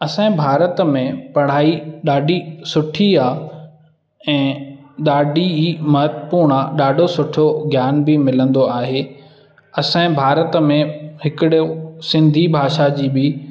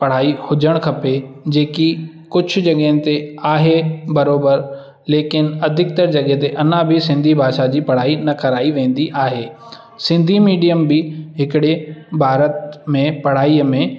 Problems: background sounds at intervals, echo